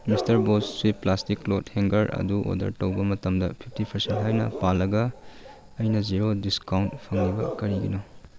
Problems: background sounds at intervals